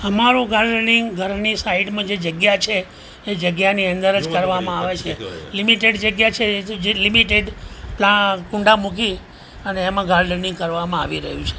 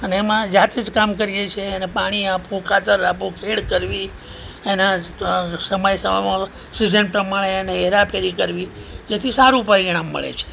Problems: background conversations at intervals